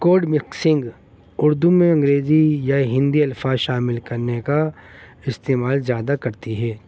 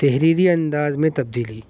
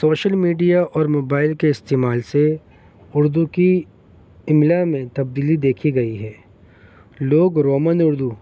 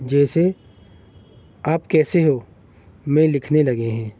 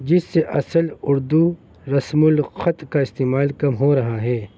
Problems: constant background noise